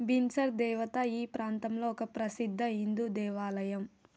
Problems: low volume